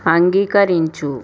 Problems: constant background noise